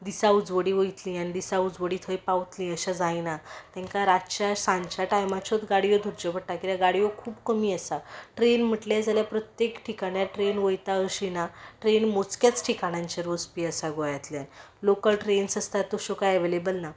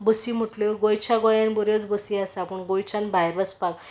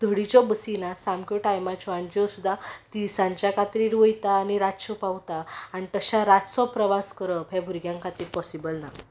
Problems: background sounds at intervals